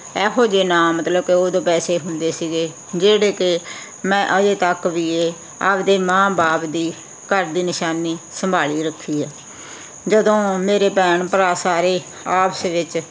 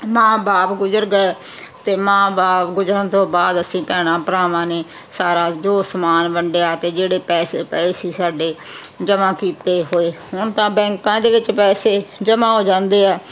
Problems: constant background noise